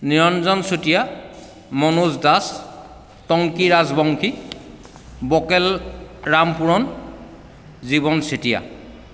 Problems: background conversations at intervals, echo